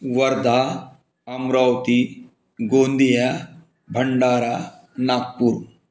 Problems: background sounds at intervals